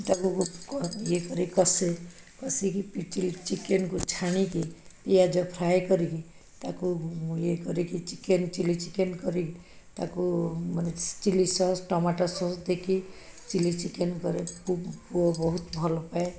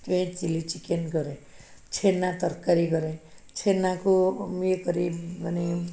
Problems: background sounds at intervals, background conversations at intervals